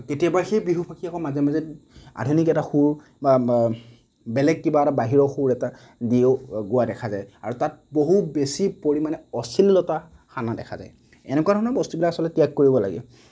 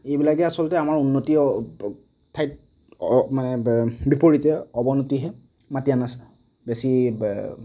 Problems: none marked